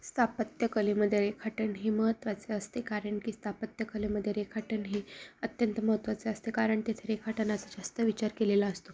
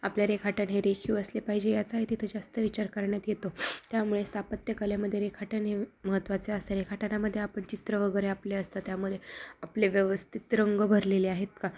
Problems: background sounds at intervals